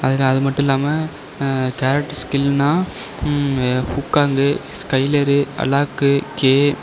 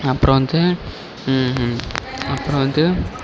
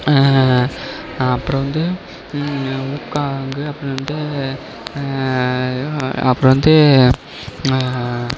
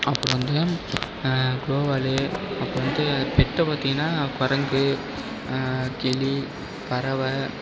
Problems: background sounds at intervals